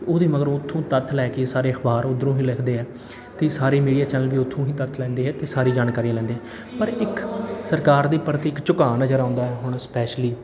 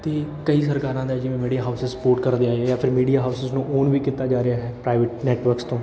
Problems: none marked